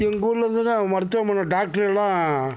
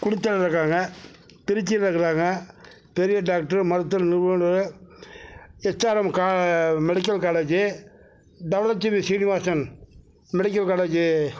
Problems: none marked